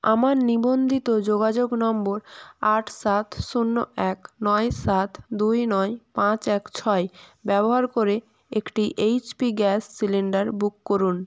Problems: none marked